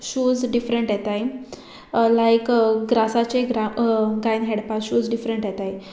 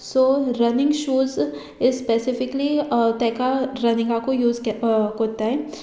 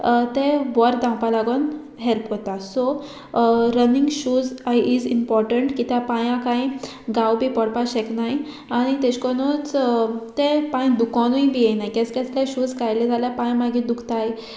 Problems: background sounds at intervals